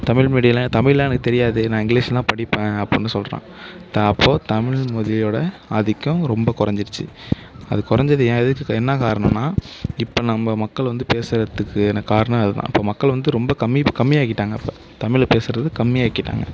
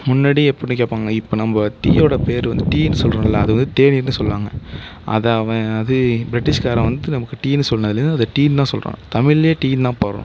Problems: none marked